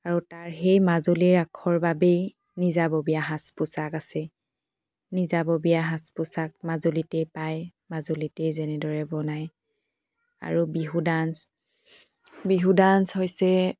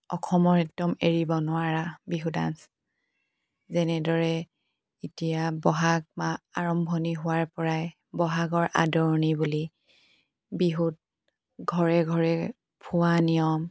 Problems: background sounds at intervals